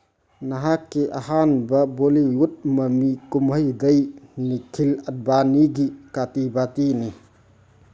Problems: none marked